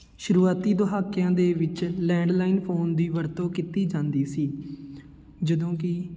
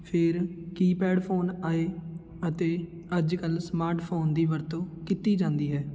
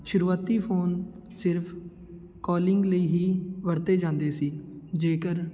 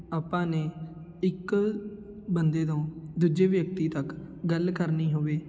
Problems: none marked